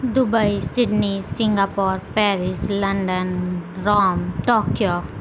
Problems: constant background noise